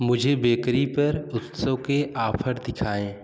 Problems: constant background noise